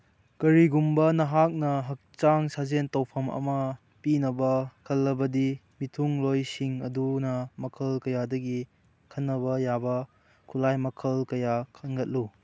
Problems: none marked